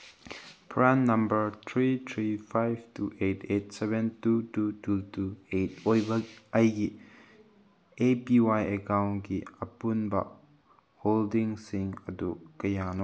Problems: background sounds at intervals